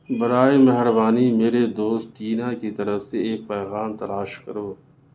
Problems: constant background noise, low volume